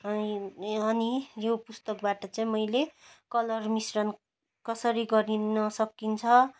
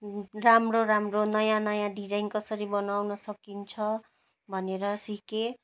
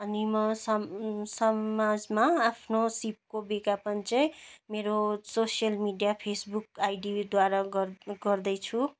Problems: none marked